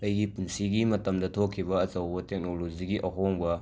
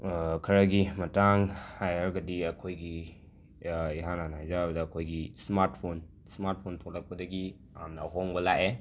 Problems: background sounds at intervals